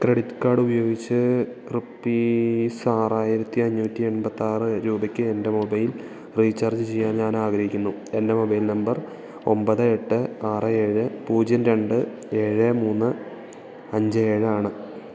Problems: continuous background conversations, low volume